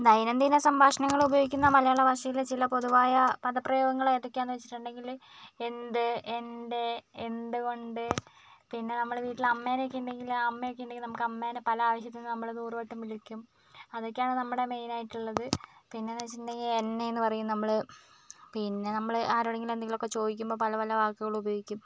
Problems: none marked